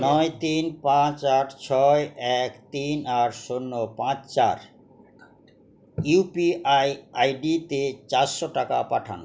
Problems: continuous background conversations